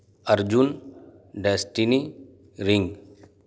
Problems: none marked